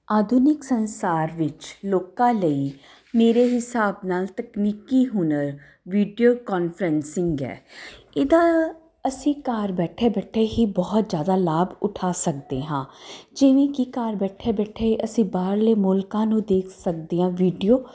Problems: constant background noise